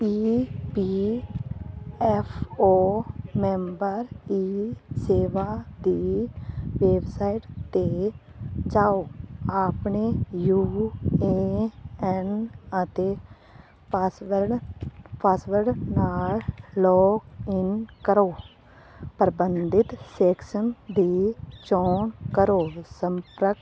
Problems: none marked